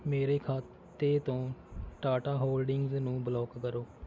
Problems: none marked